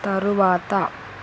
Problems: constant background noise